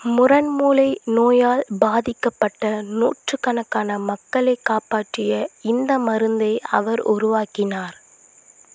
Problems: constant background noise